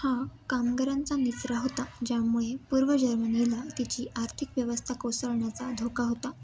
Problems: constant background noise, continuous background conversations